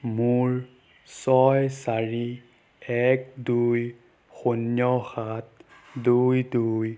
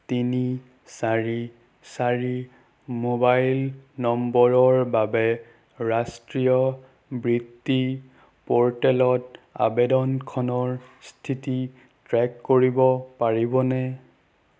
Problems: none marked